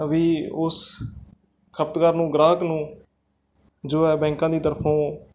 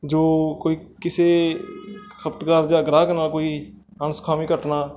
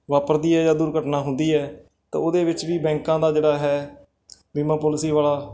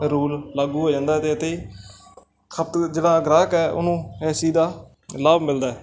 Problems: background sounds at intervals, background conversations at intervals